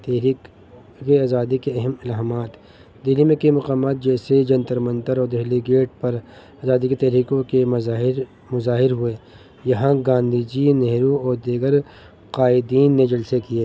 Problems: constant background noise